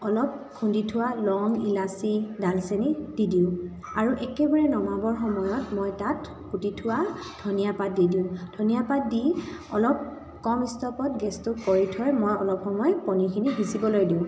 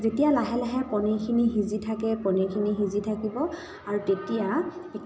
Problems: constant background noise